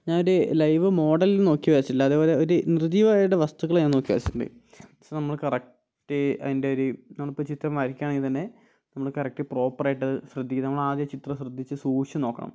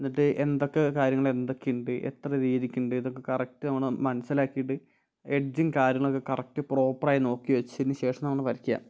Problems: none marked